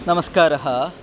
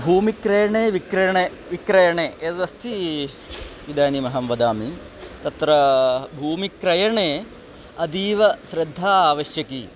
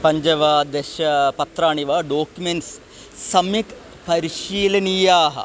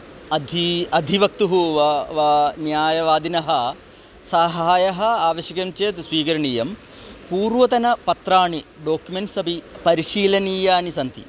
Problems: constant background noise